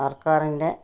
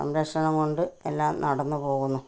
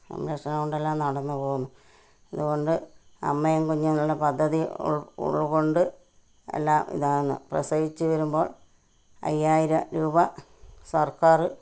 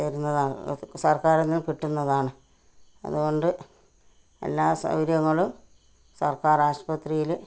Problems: none marked